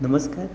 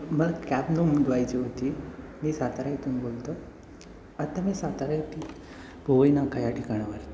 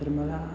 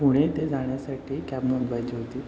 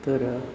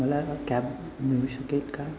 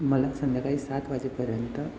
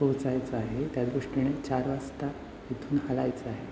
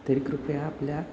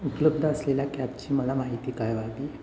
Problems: constant background noise